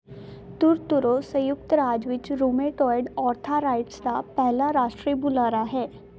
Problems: none marked